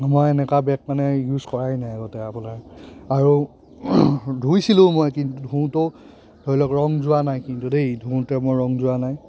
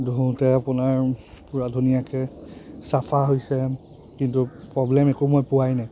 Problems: constant background noise, background conversations at intervals